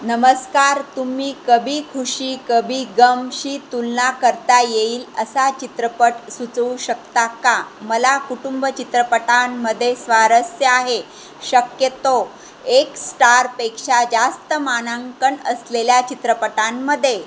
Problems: constant background noise